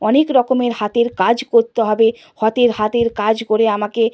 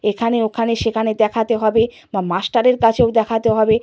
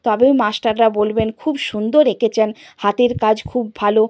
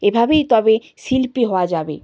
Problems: none marked